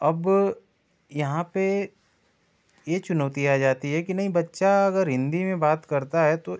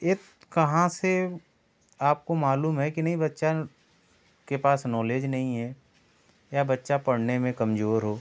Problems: none marked